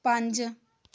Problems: background conversations at intervals